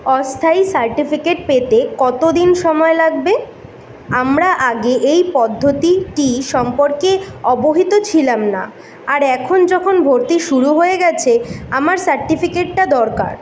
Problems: constant background noise